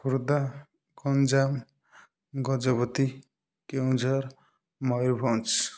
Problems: none marked